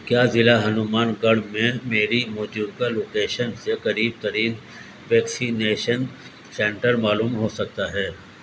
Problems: constant background noise